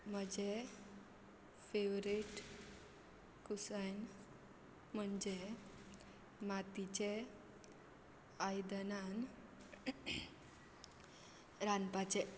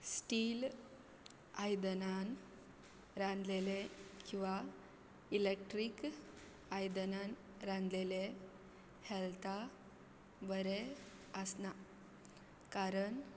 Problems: constant background noise